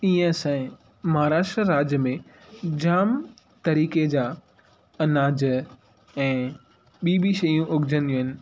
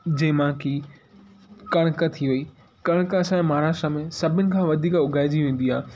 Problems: constant background noise